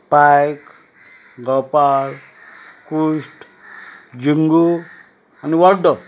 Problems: none marked